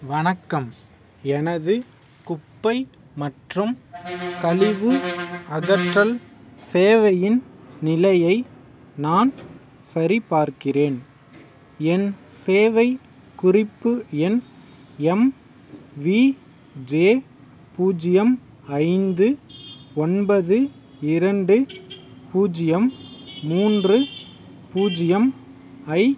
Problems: background sounds at intervals